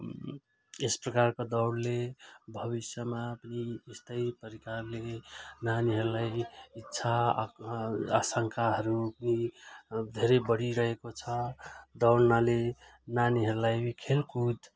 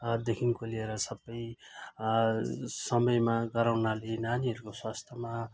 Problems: none marked